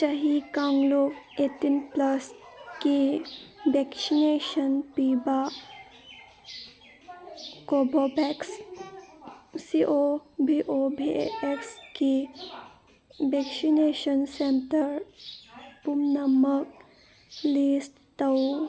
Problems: background sounds at intervals